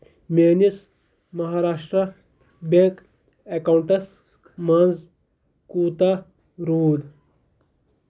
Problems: none marked